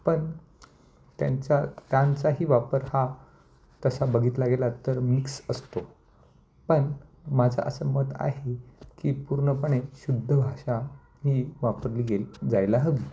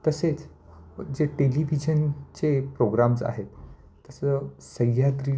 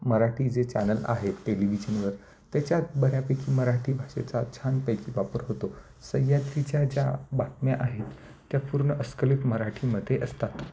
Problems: none marked